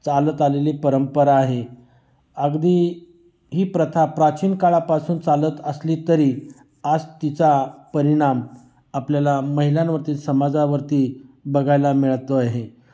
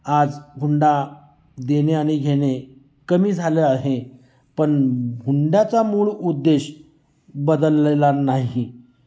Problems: constant background noise, echo